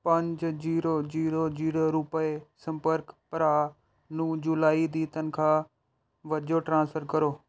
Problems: none marked